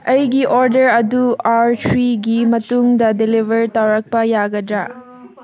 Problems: background conversations at intervals